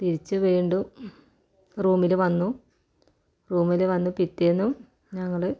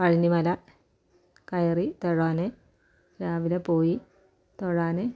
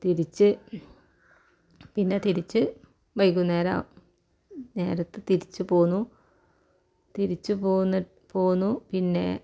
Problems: low volume